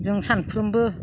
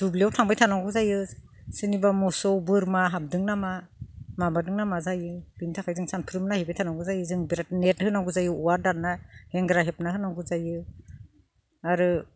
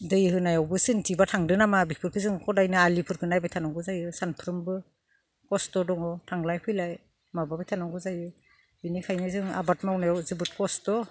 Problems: none marked